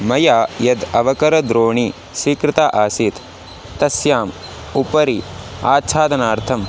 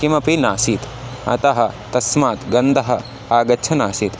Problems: constant background noise